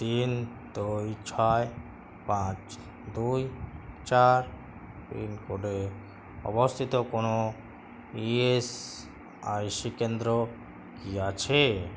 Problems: constant background noise